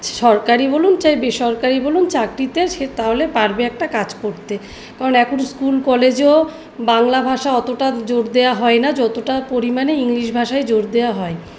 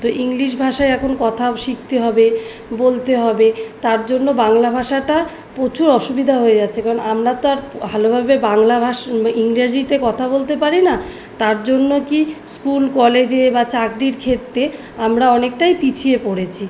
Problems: background sounds at intervals